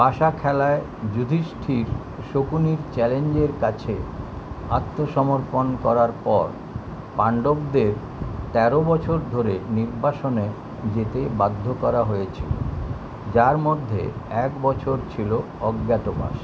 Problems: constant background noise